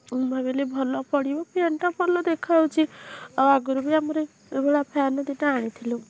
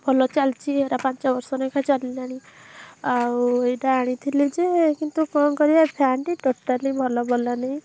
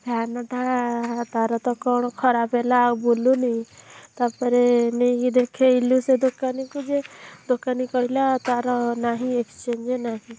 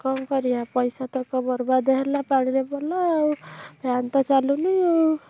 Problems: none marked